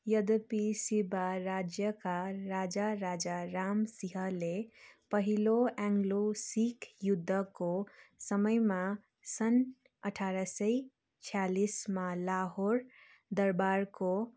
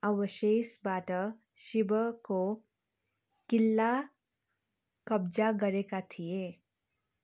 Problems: none marked